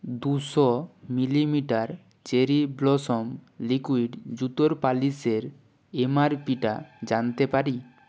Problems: constant background noise